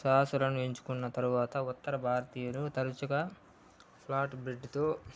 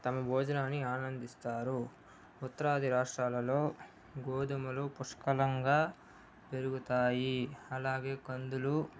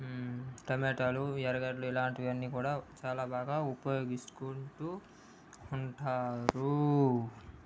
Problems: low volume